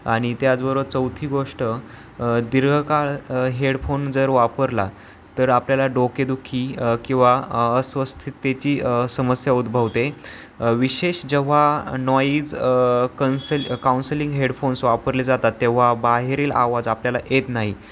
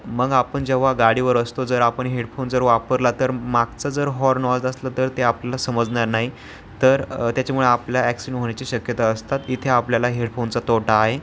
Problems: constant background noise